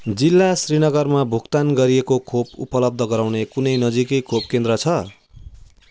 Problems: constant background noise